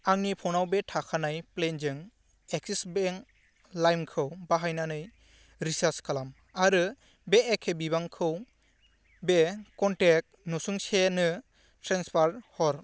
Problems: low volume